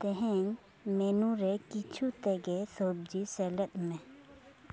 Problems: none marked